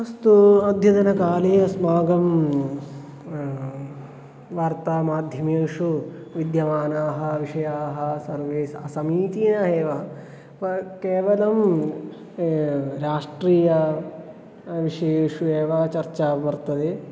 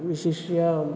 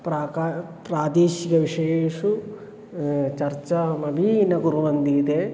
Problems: constant background noise